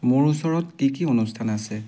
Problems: background sounds at intervals